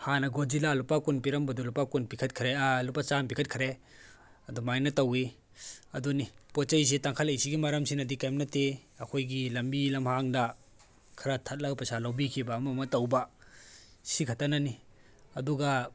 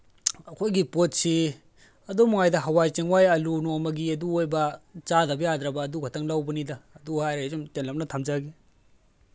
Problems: background sounds at intervals